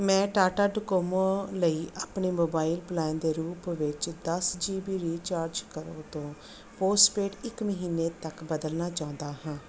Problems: background sounds at intervals